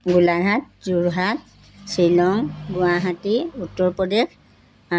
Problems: none marked